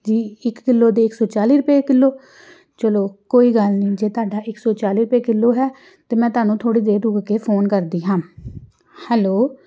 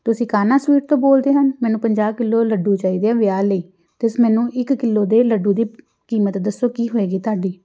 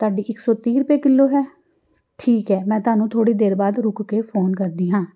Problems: background sounds at intervals